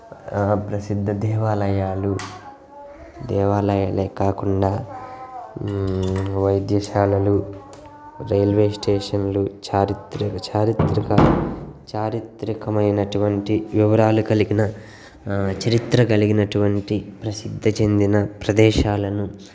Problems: background sounds at intervals, background conversations at intervals